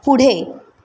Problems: constant background noise